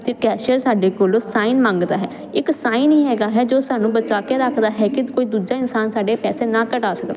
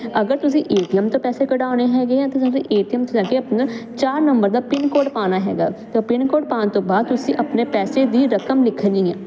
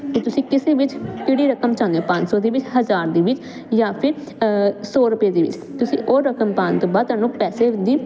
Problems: none marked